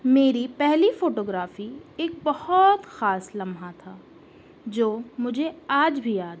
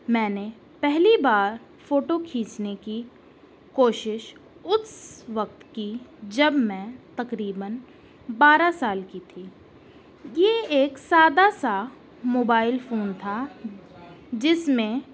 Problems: constant background noise